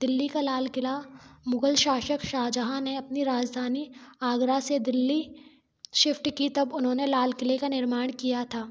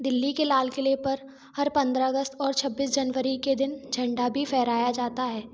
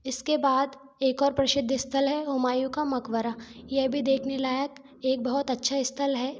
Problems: none marked